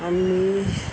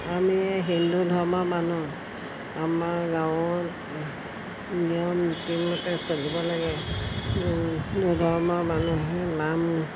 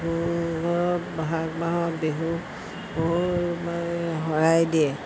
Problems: constant background noise